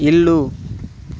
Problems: constant background noise